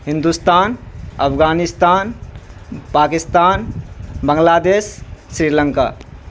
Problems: constant background noise